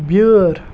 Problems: background sounds at intervals